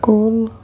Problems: none marked